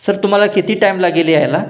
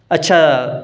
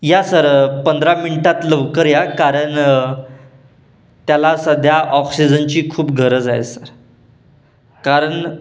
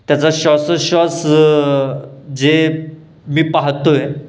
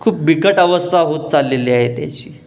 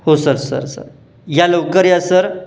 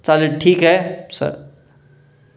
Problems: none marked